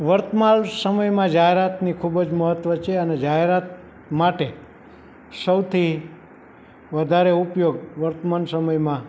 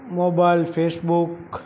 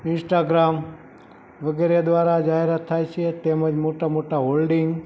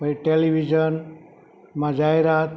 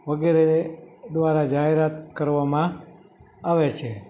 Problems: none marked